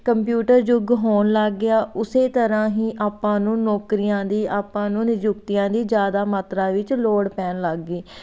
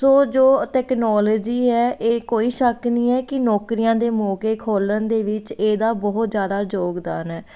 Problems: background sounds at intervals